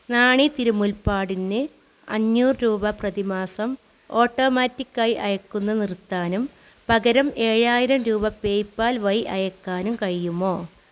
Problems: constant background noise